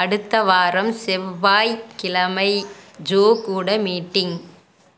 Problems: background sounds at intervals